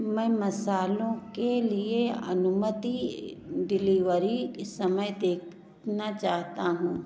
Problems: background sounds at intervals